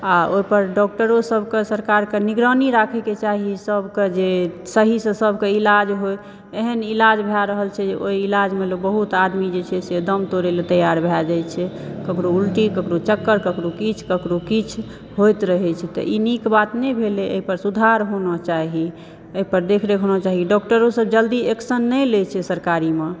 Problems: background sounds at intervals